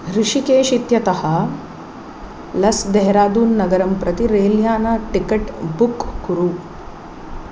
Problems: none marked